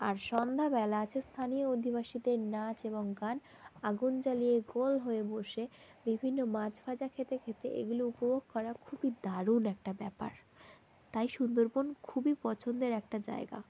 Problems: constant background noise